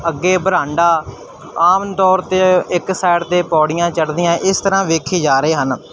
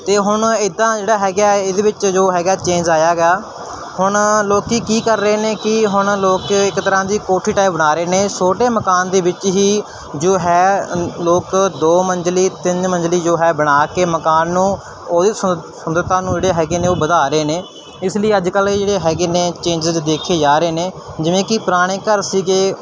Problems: constant background noise